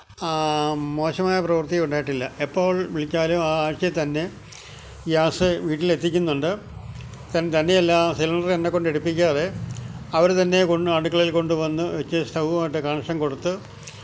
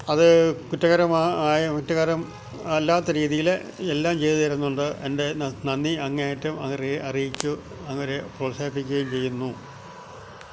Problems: none marked